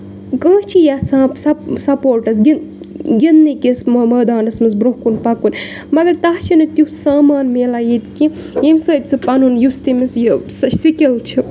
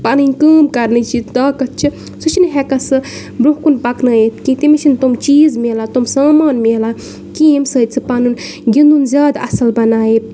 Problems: background sounds at intervals